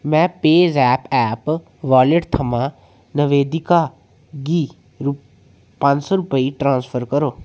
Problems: echo